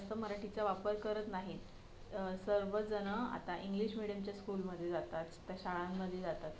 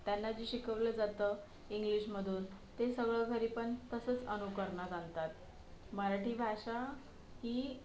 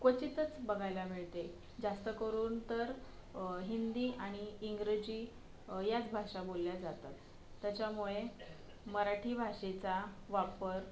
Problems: background sounds at intervals, low volume